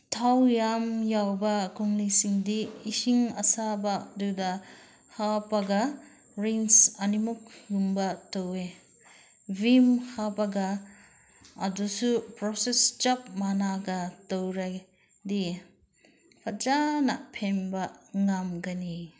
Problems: none marked